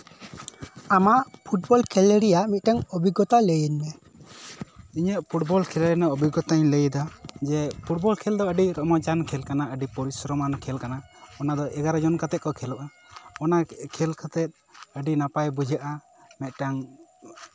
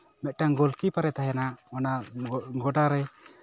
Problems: background sounds at intervals, background conversations at intervals